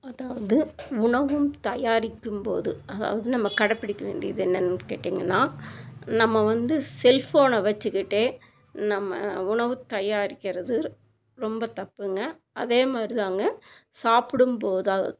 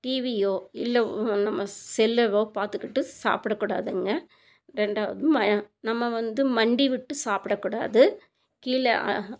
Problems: none marked